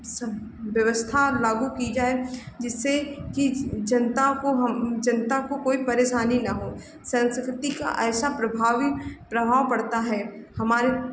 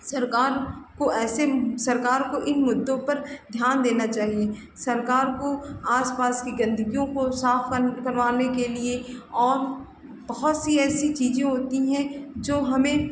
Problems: background sounds at intervals